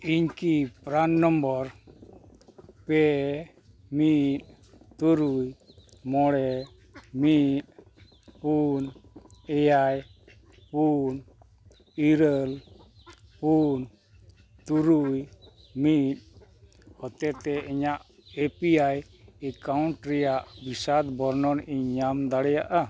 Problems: background sounds at intervals